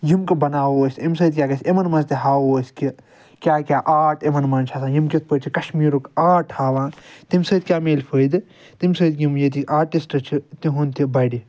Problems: none marked